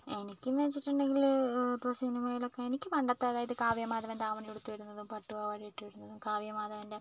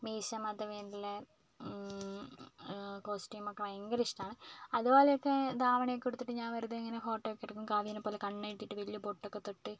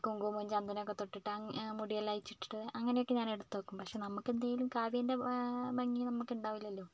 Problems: low volume